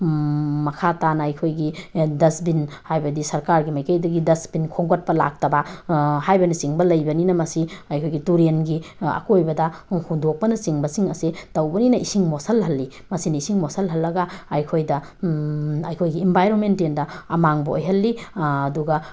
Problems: background sounds at intervals